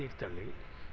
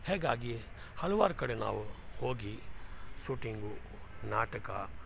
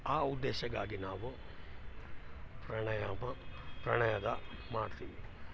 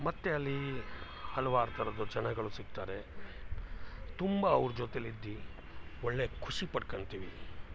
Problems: background sounds at intervals